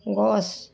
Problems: constant background noise